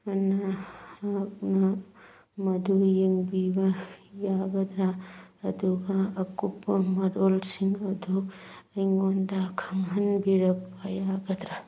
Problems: background sounds at intervals